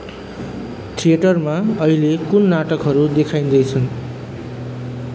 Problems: background sounds at intervals